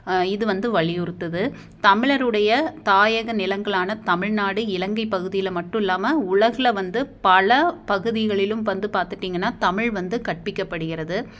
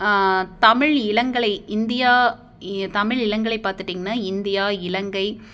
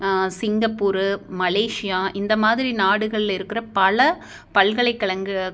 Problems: none marked